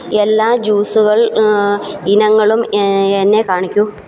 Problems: constant background noise